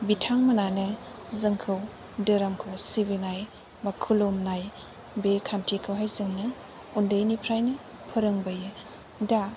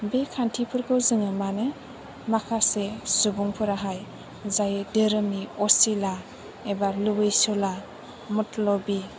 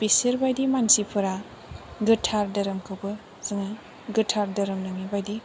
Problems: background sounds at intervals